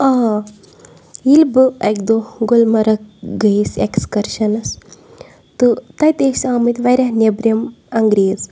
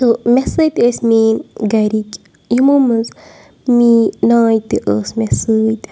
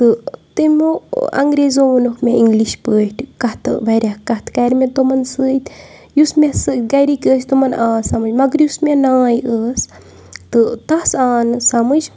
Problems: none marked